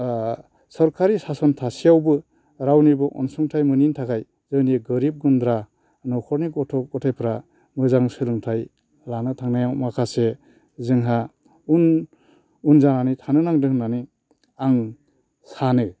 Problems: none marked